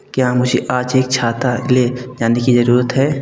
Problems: constant background noise